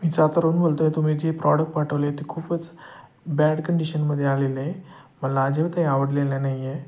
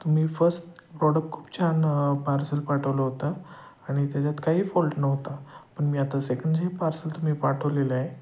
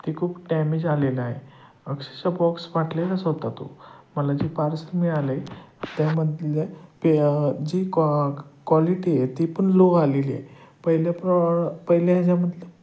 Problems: none marked